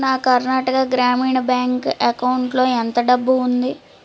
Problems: none marked